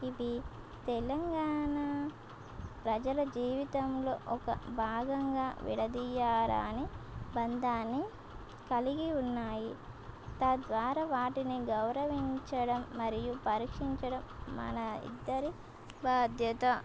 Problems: constant background noise